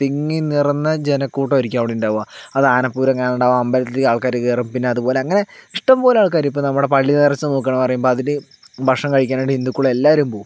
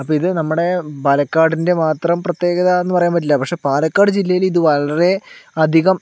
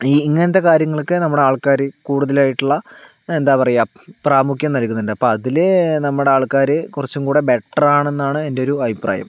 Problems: none marked